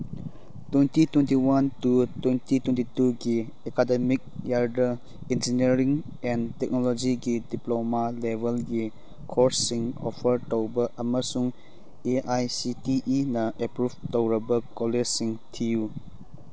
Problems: none marked